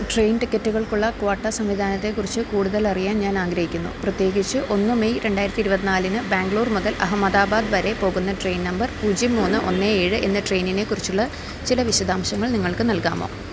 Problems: none marked